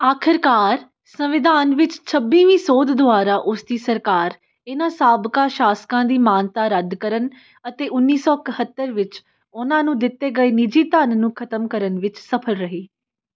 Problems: none marked